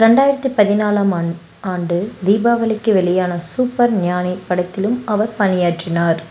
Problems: background sounds at intervals